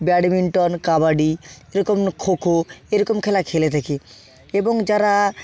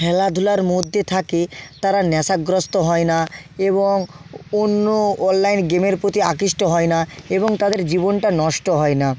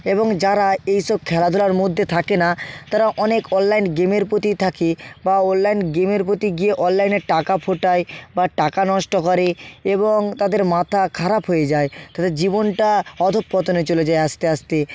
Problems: background sounds at intervals